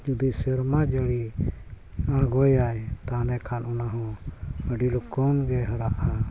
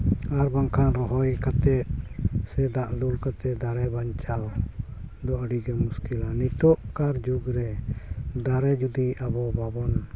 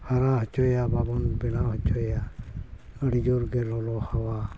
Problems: constant background noise, background conversations at intervals